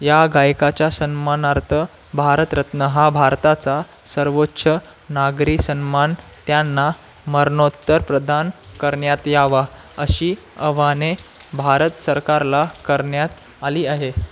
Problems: constant background noise